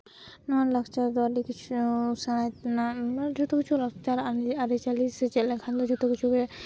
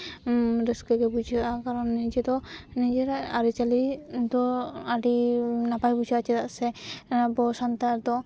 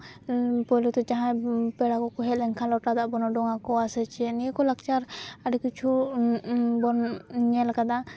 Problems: none marked